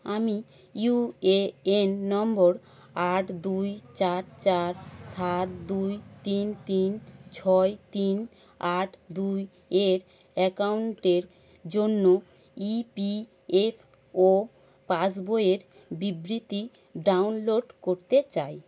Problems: constant background noise, background conversations at intervals